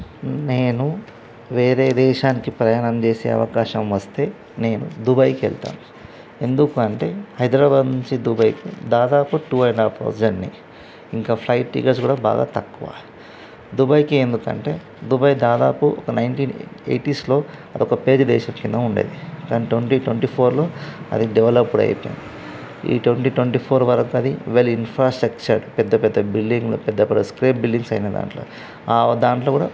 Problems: constant background noise